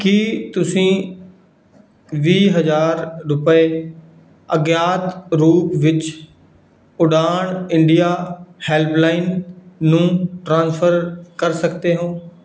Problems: background sounds at intervals